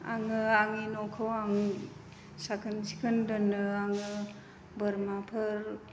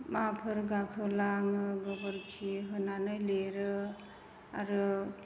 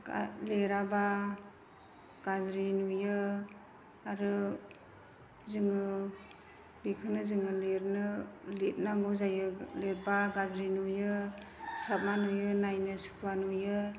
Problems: none marked